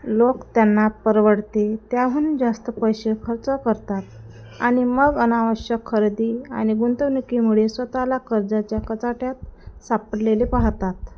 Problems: none marked